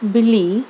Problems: background sounds at intervals